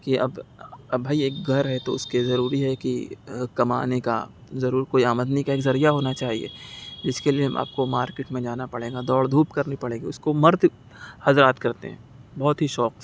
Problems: none marked